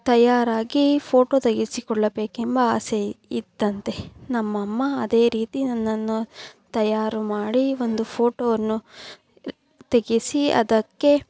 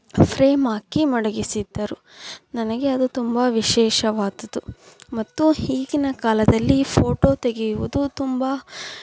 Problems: background sounds at intervals